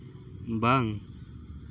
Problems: constant background noise